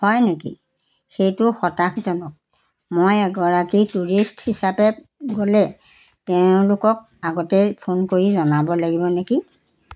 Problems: constant background noise